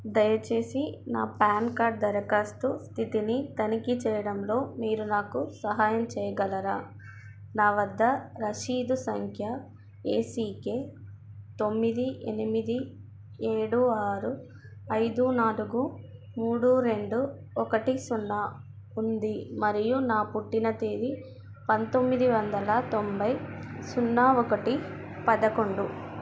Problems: constant background noise, background conversations at intervals